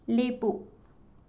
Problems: none marked